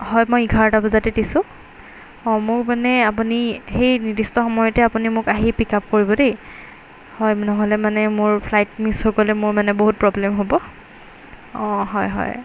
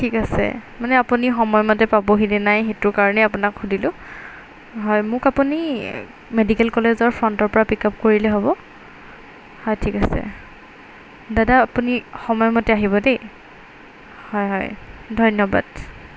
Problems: background sounds at intervals